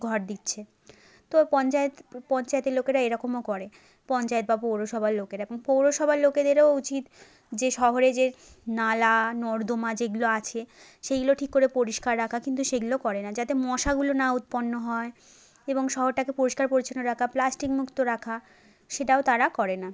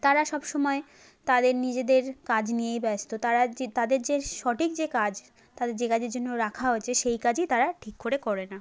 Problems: background sounds at intervals